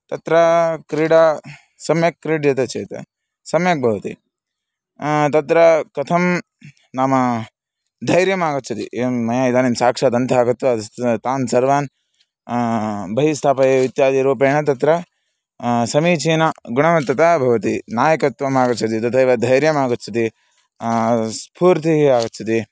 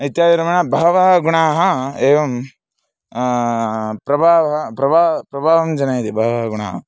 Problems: none marked